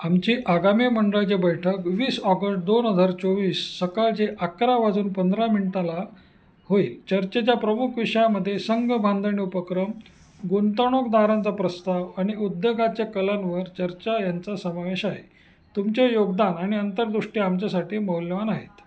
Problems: constant background noise, background conversations at intervals, echo